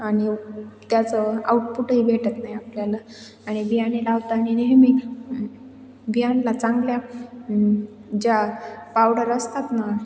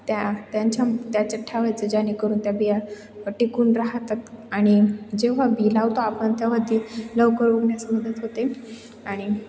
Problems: none marked